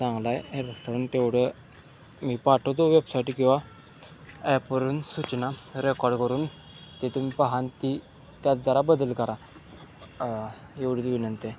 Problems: constant background noise, continuous background conversations